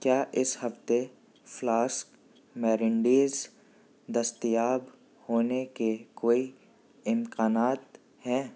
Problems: background sounds at intervals, low volume